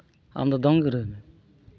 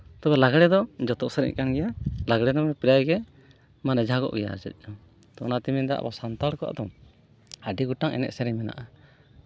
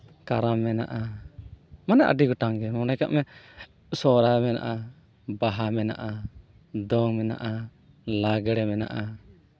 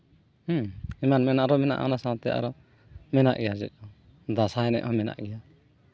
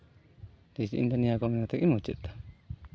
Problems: background sounds at intervals